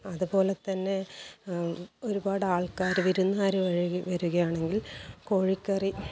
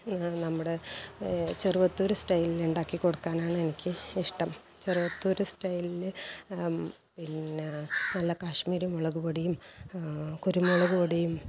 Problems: background sounds at intervals, low volume